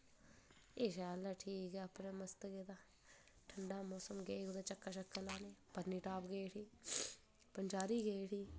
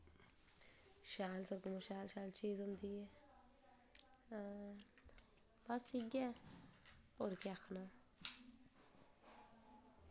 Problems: low volume